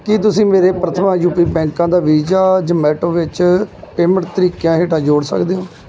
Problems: background conversations at intervals